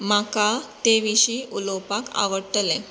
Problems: constant background noise